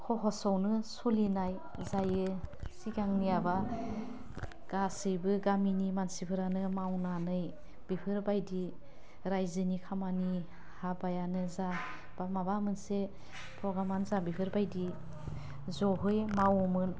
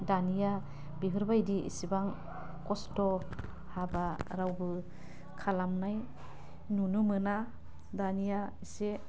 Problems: none marked